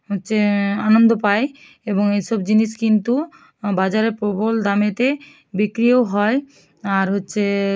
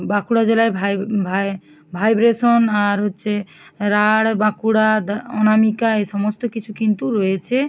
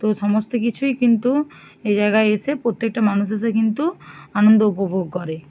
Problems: none marked